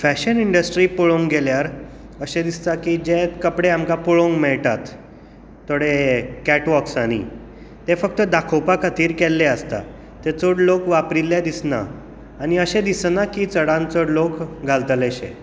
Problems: none marked